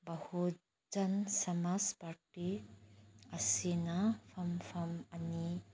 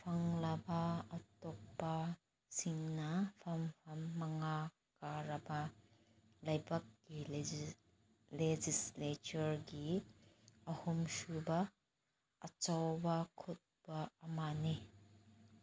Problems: background sounds at intervals